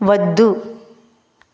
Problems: constant background noise